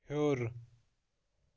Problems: background sounds at intervals